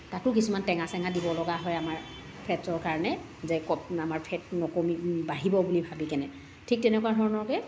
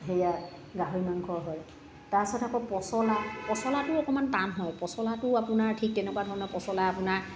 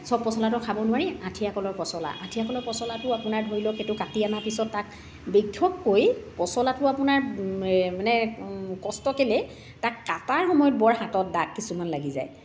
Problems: background sounds at intervals, background conversations at intervals, echo